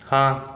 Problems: none marked